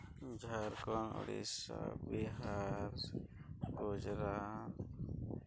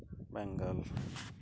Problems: low volume